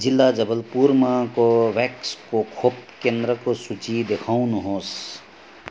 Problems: constant background noise